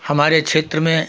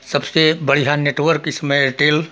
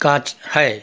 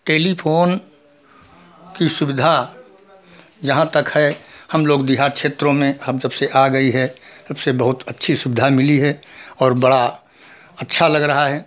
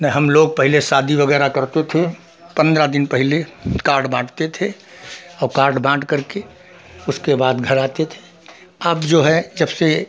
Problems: background sounds at intervals